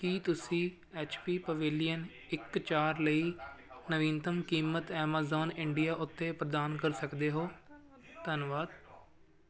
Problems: continuous background conversations